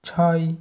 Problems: none marked